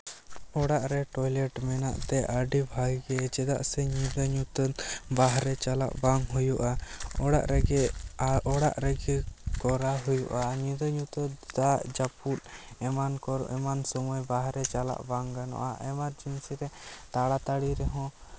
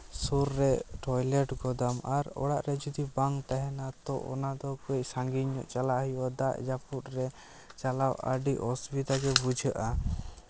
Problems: background sounds at intervals